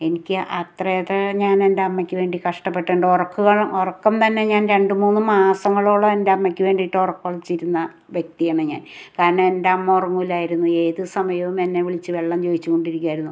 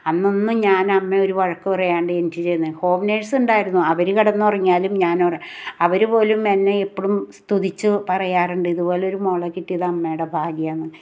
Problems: none marked